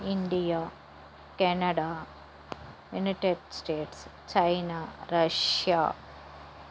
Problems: constant background noise